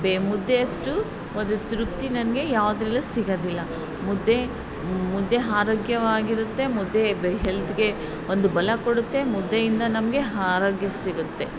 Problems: background sounds at intervals